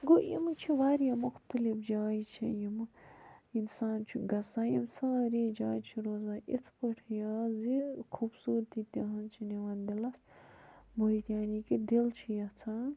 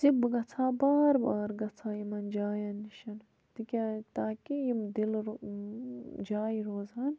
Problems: background sounds at intervals, low volume